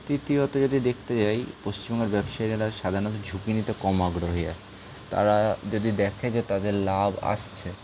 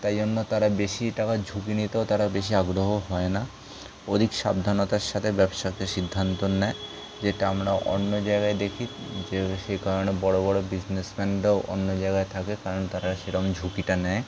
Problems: constant background noise